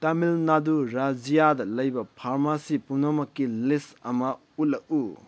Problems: none marked